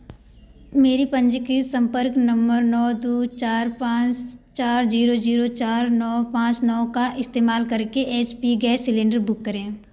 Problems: background sounds at intervals